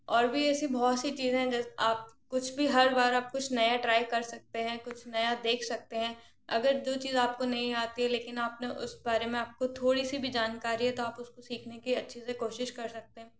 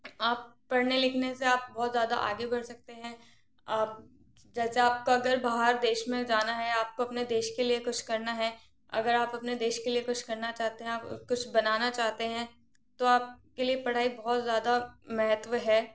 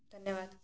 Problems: none marked